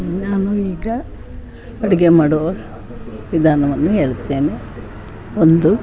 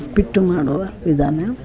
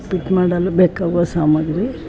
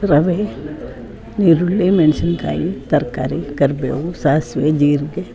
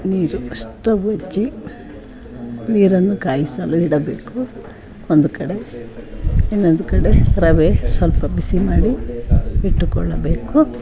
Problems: constant background noise